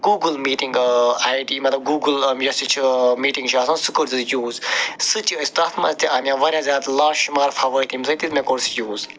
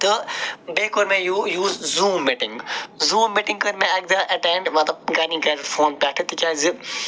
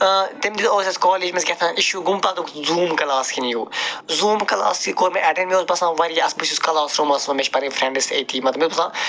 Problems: none marked